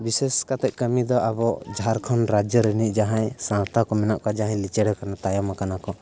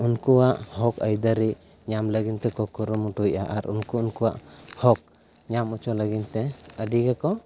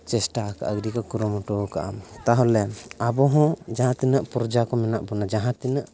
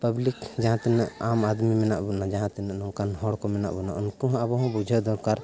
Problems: none marked